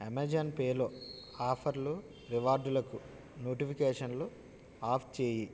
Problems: none marked